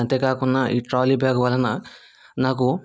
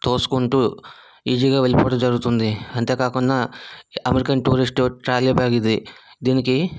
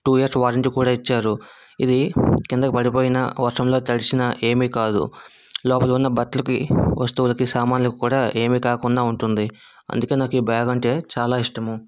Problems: background sounds at intervals